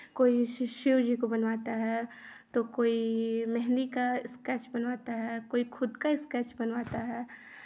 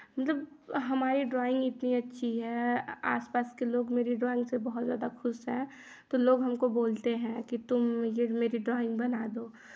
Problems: constant background noise